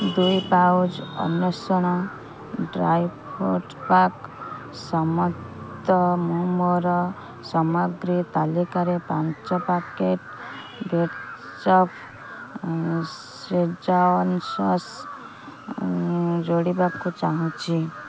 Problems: low volume